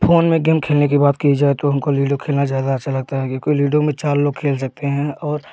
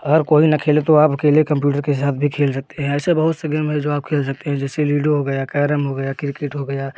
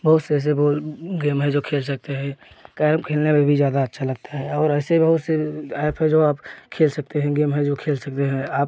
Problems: background sounds at intervals, continuous background conversations